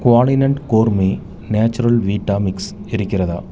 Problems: constant background noise